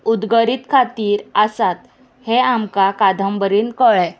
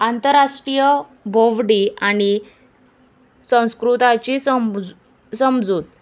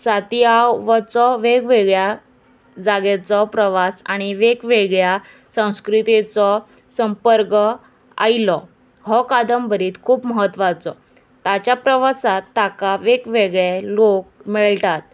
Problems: constant background noise